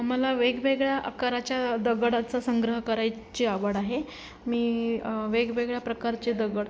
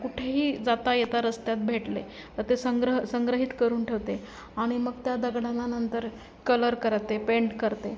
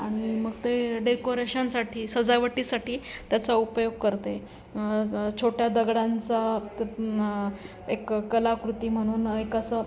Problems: none marked